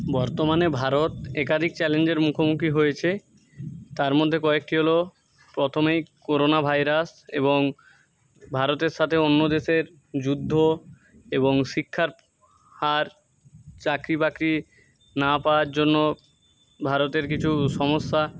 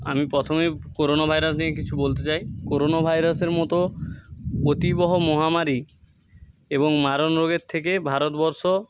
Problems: none marked